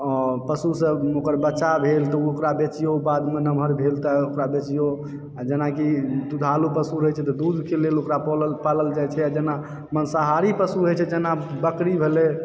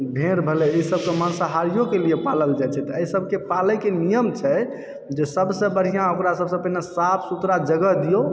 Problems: background sounds at intervals, background conversations at intervals